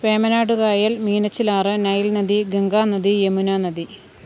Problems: none marked